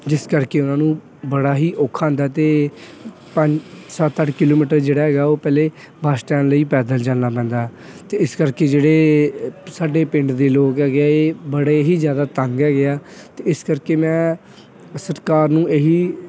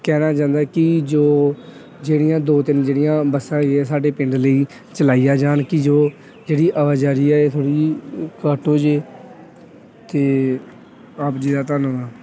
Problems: none marked